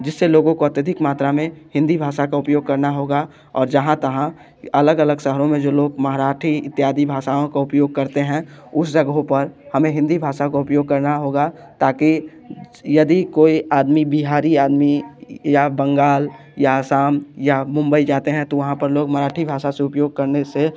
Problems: background sounds at intervals